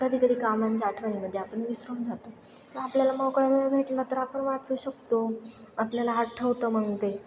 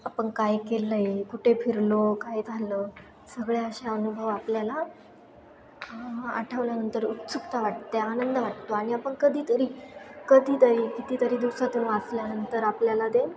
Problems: constant background noise, continuous background conversations